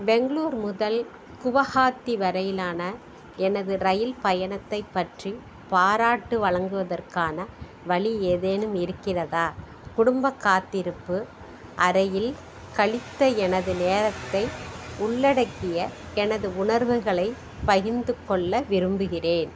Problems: background sounds at intervals